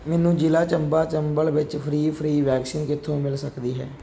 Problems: background sounds at intervals